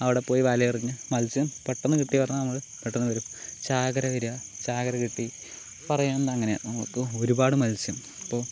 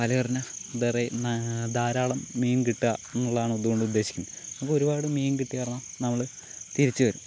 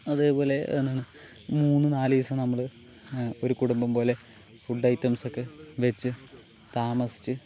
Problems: none marked